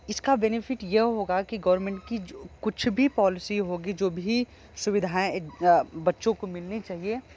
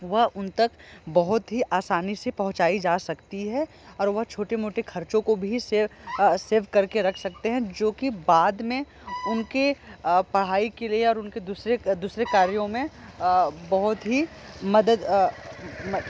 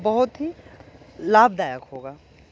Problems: constant background noise